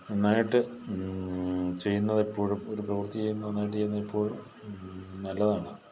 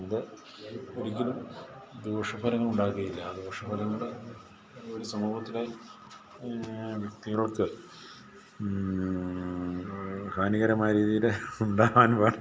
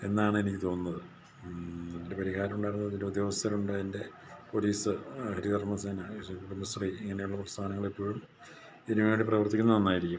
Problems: background conversations at intervals, low volume